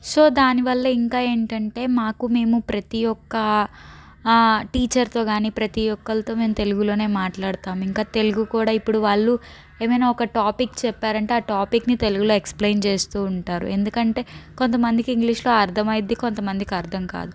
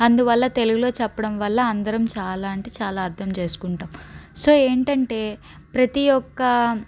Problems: none marked